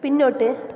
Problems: background sounds at intervals